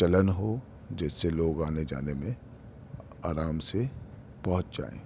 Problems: constant background noise, background conversations at intervals